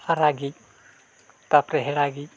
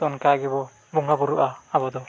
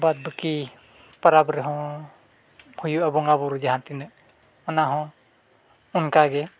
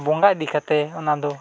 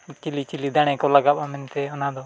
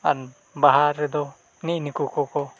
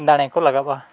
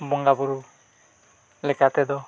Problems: none marked